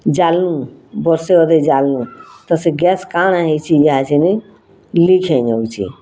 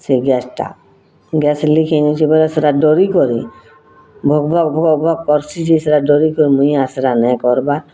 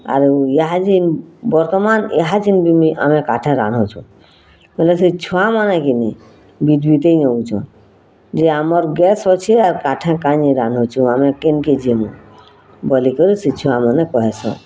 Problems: constant background noise